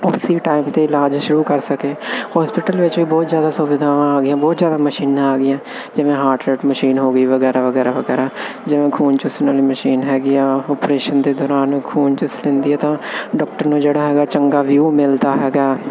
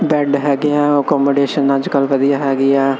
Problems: none marked